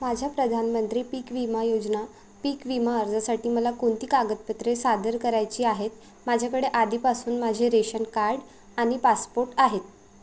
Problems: constant background noise